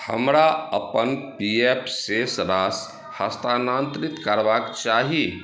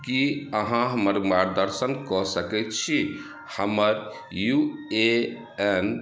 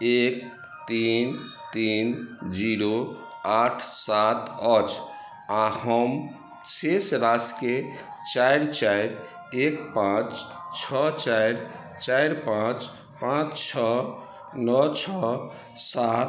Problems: background sounds at intervals